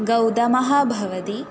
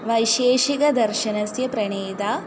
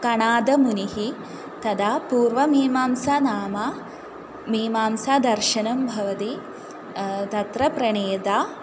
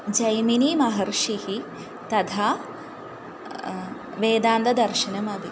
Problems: constant background noise